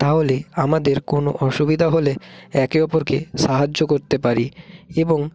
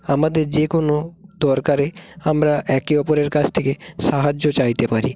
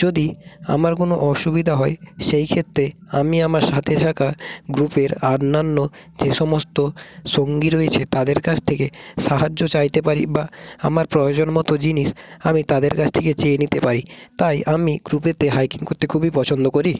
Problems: none marked